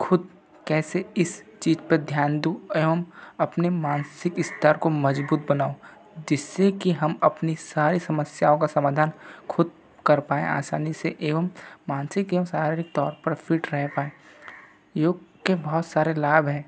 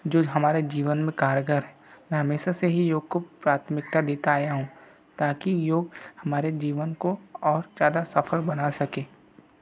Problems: background sounds at intervals